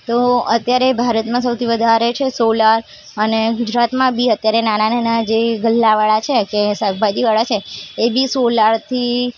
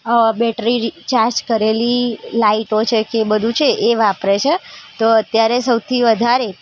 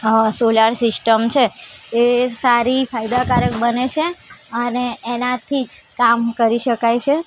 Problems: constant background noise, background conversations at intervals